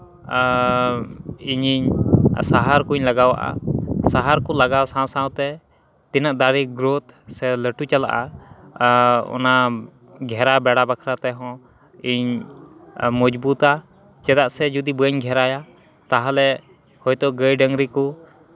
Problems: constant background noise, continuous background conversations